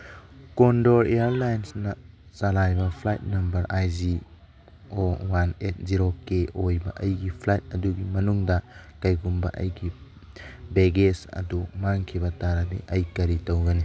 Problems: background sounds at intervals, background conversations at intervals